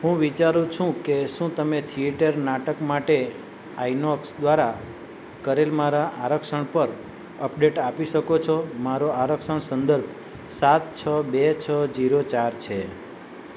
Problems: none marked